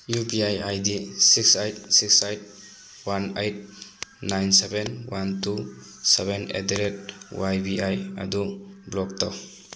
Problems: constant background noise